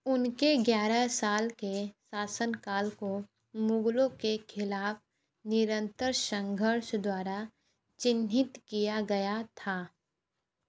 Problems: none marked